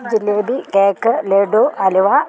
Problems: background sounds at intervals